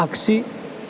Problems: none marked